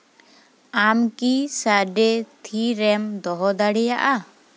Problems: background sounds at intervals